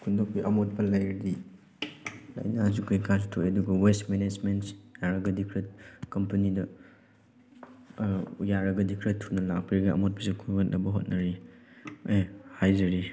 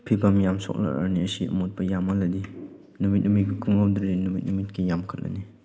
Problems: background sounds at intervals